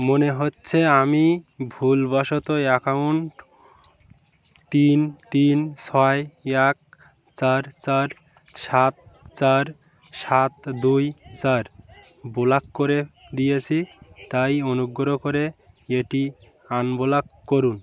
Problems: background sounds at intervals